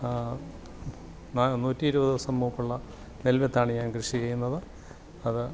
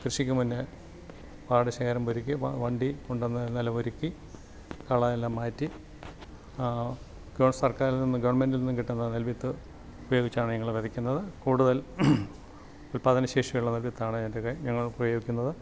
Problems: low volume